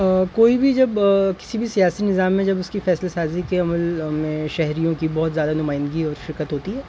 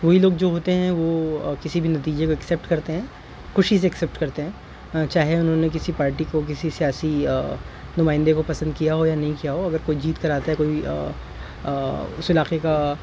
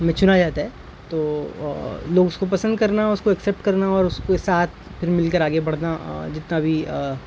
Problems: constant background noise